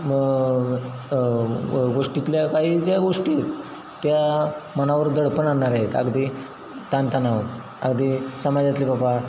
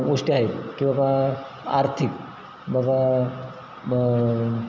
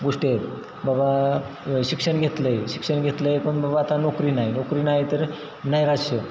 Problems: constant background noise, background conversations at intervals